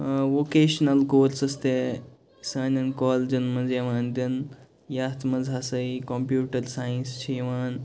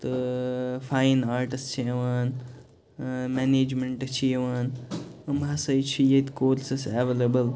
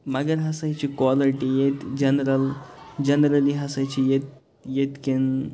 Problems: background sounds at intervals, background conversations at intervals